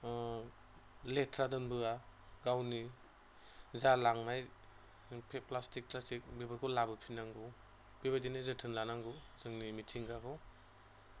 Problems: none marked